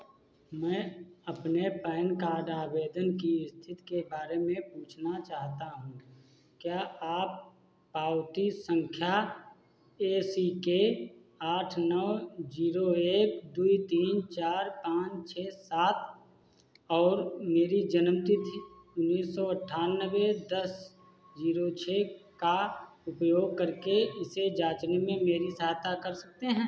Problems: constant background noise